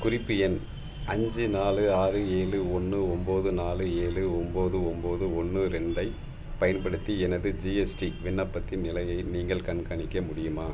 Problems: background sounds at intervals